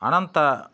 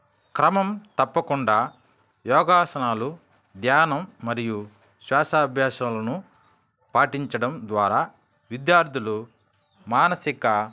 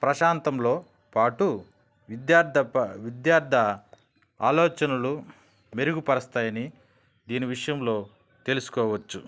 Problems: background sounds at intervals